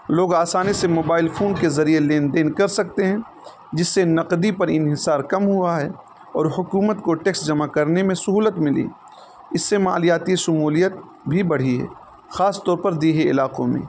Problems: constant background noise